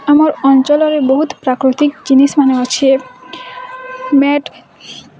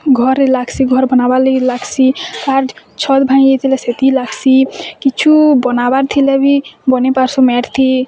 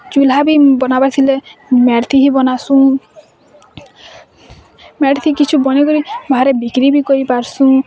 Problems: constant background noise, continuous background conversations